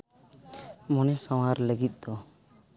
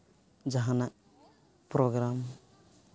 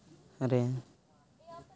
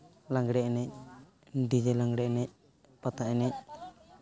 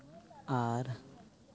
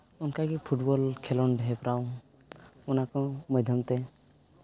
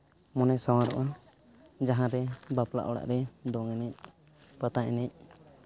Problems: none marked